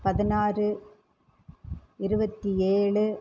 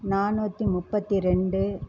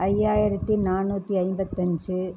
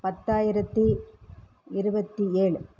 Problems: none marked